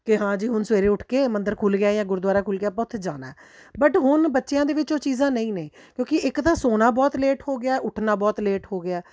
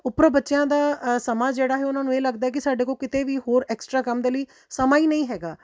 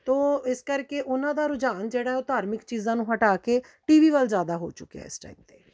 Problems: none marked